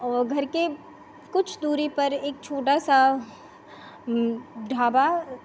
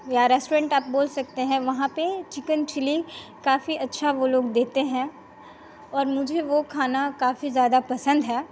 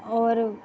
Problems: constant background noise